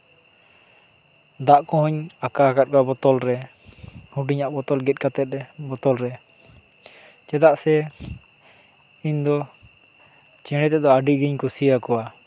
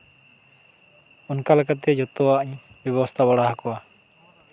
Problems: none marked